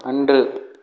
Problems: none marked